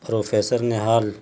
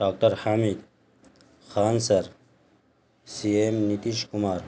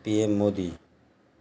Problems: constant background noise